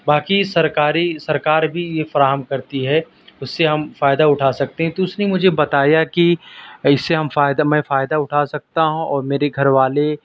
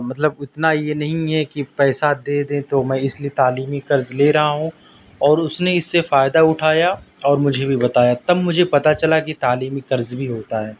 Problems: constant background noise, low volume